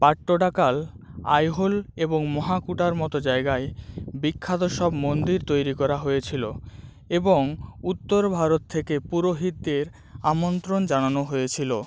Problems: background sounds at intervals